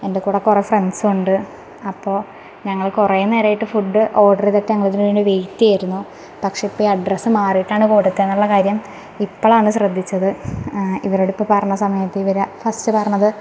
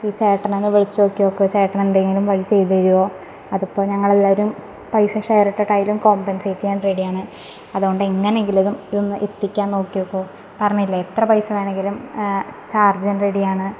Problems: background sounds at intervals